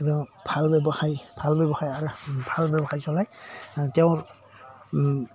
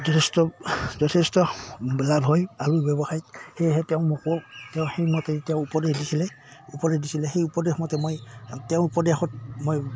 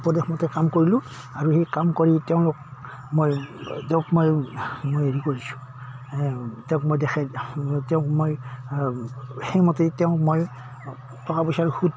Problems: background sounds at intervals